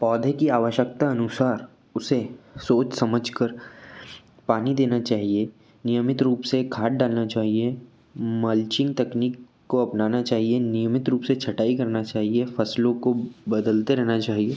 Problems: none marked